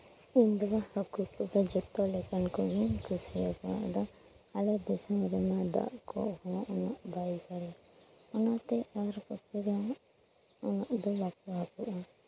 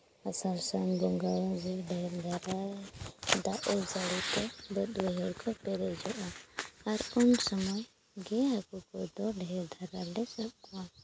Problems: background sounds at intervals